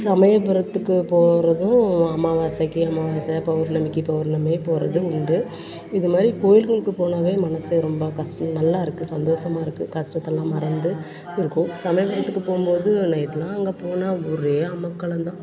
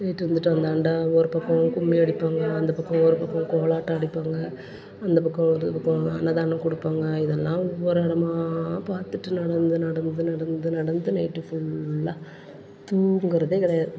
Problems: constant background noise, continuous background conversations